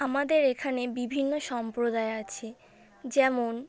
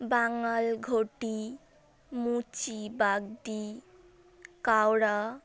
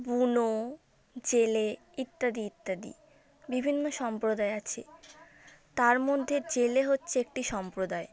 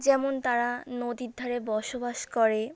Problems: none marked